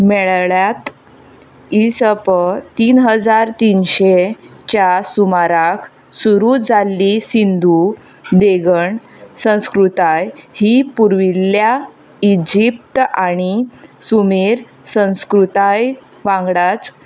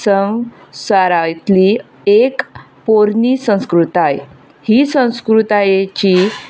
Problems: constant background noise